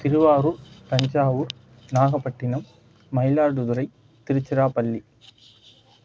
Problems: none marked